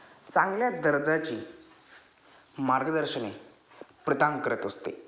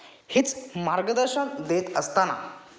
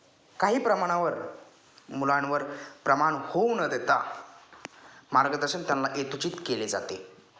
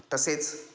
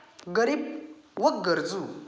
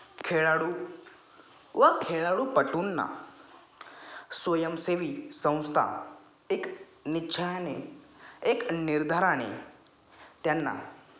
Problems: background sounds at intervals, background conversations at intervals